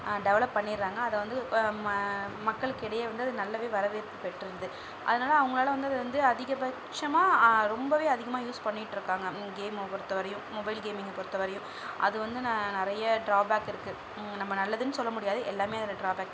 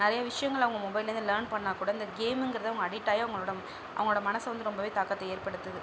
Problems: low volume